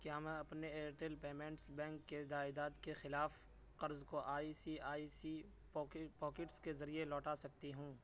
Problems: constant background noise